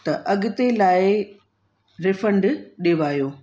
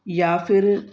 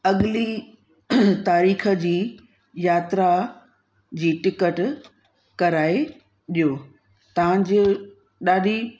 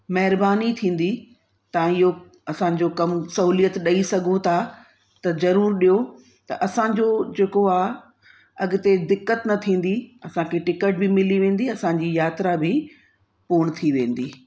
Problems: constant background noise, echo